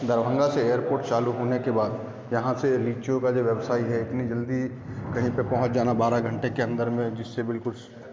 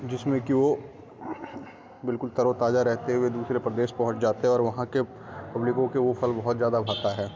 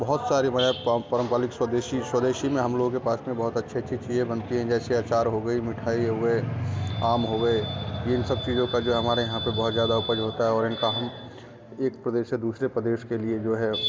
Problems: none marked